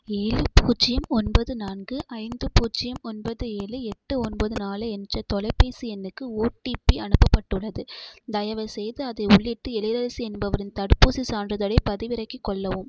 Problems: background sounds at intervals